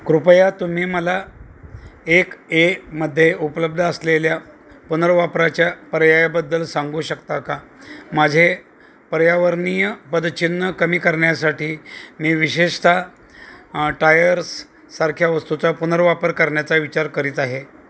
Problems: none marked